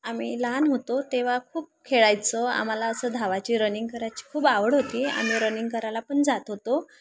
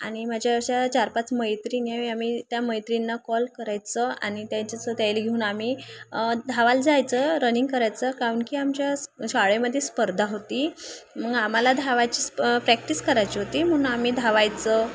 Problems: background sounds at intervals, background conversations at intervals